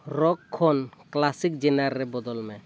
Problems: background sounds at intervals